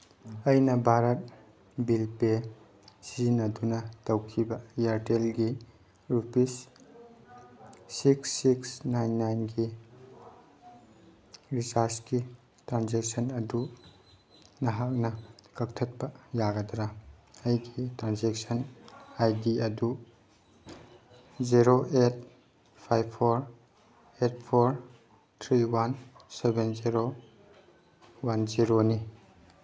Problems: background sounds at intervals